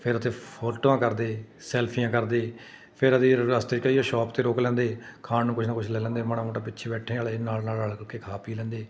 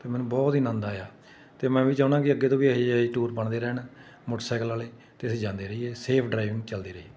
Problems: none marked